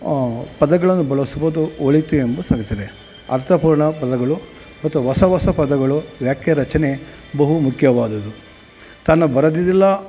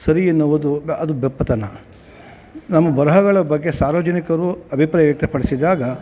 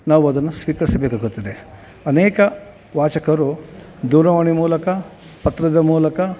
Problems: none marked